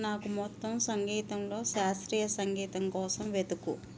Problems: constant background noise